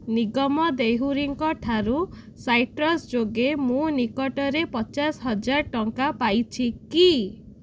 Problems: none marked